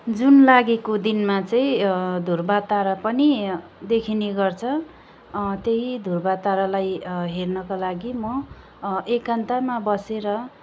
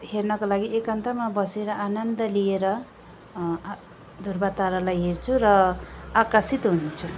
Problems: background sounds at intervals